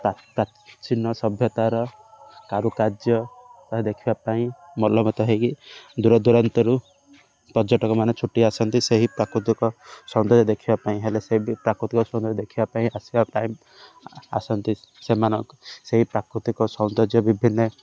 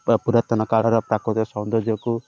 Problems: none marked